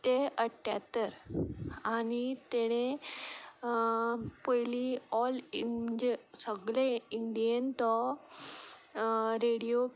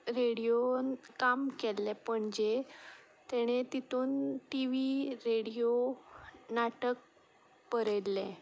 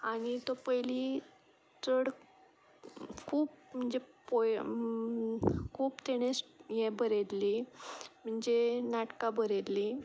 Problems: none marked